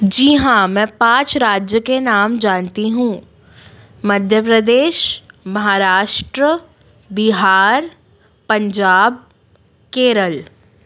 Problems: background sounds at intervals, background conversations at intervals